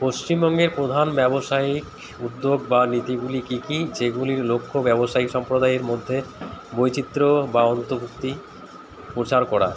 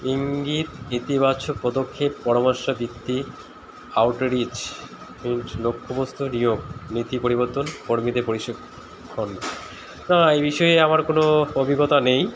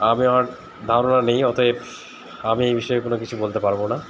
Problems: constant background noise